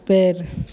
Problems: low volume